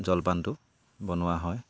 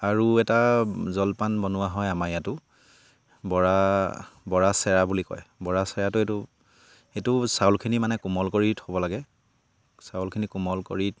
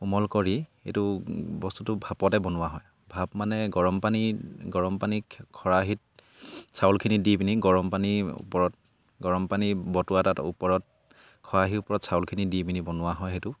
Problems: background sounds at intervals